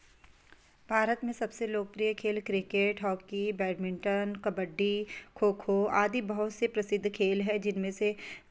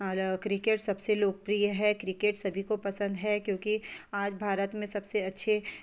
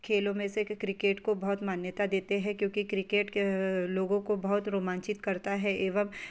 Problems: constant background noise